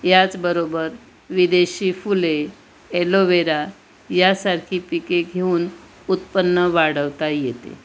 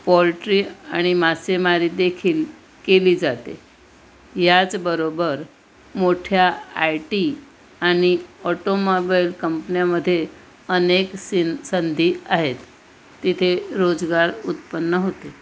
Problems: constant background noise